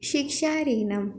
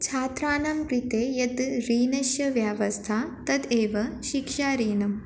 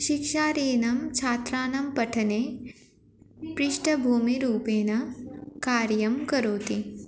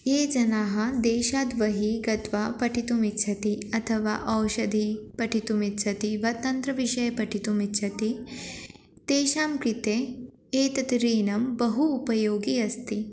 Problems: constant background noise, background conversations at intervals